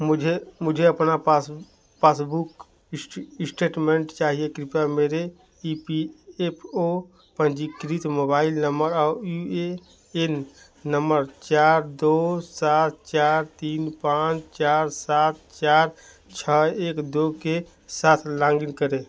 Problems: none marked